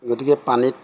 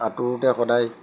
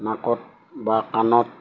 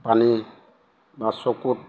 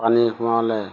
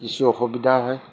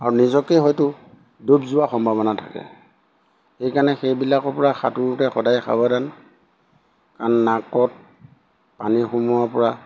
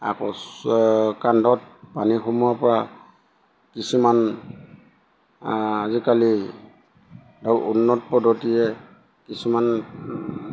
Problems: background sounds at intervals